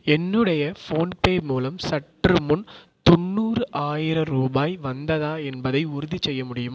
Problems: echo